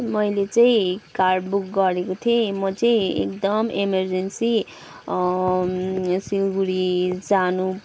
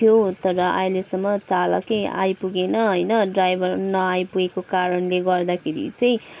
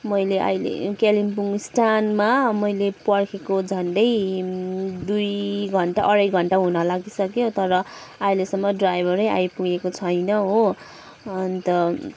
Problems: background sounds at intervals